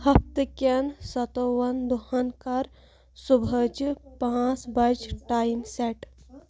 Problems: none marked